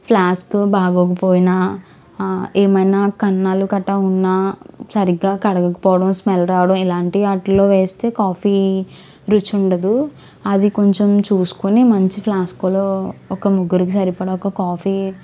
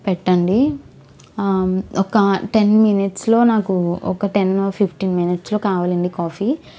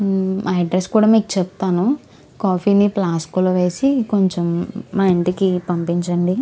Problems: background sounds at intervals